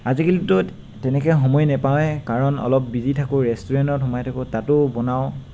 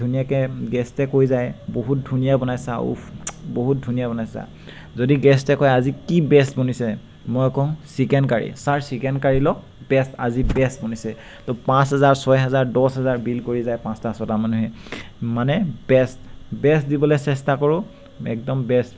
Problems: constant background noise